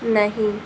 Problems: constant background noise